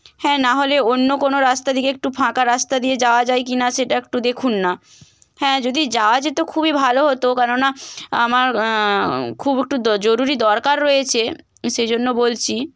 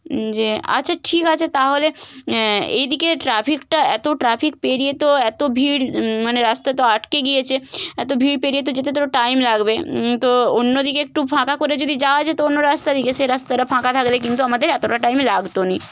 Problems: constant background noise